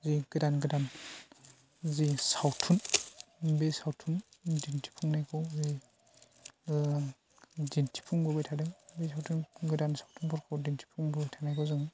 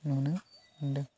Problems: constant background noise